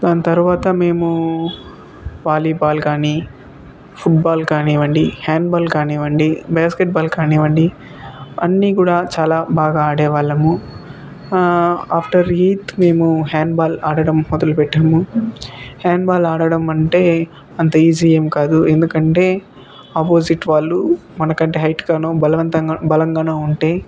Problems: constant background noise, background conversations at intervals